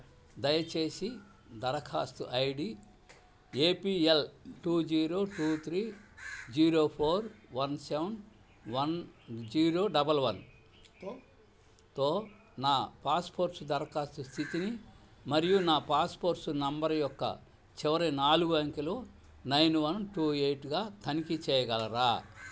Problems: constant background noise